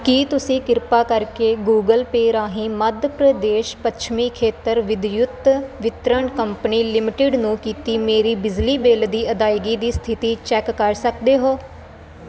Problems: constant background noise